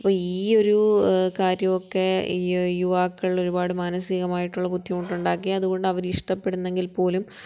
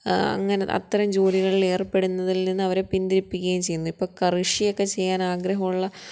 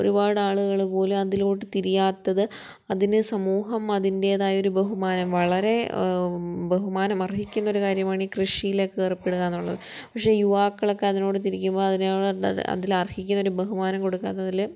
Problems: none marked